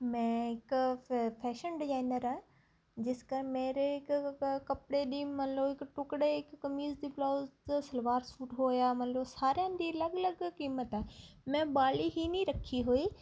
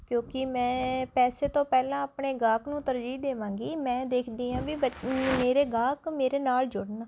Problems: constant background noise